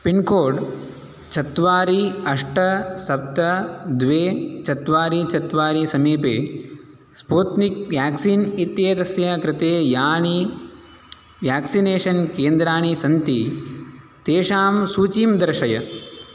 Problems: none marked